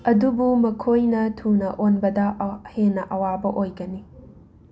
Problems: constant background noise